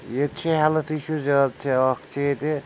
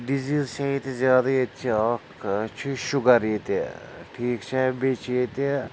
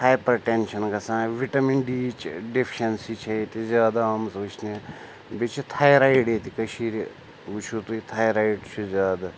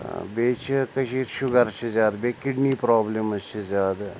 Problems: constant background noise